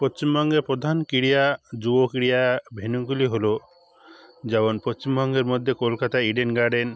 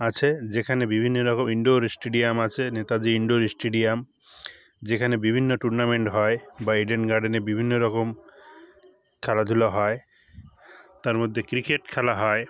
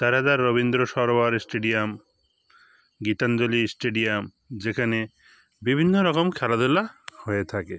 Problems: constant background noise, background conversations at intervals